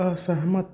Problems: low volume